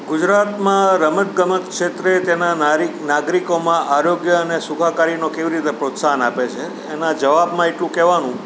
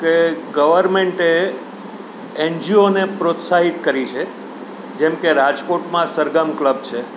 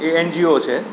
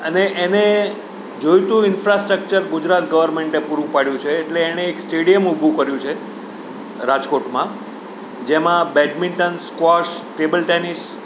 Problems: none marked